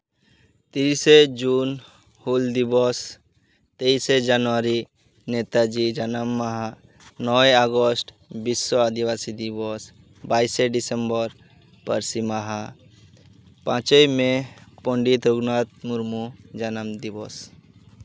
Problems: constant background noise